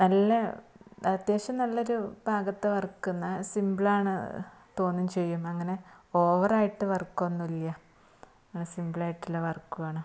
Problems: constant background noise